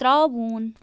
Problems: constant background noise